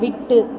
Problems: continuous background conversations